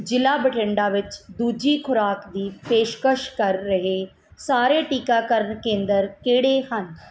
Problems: none marked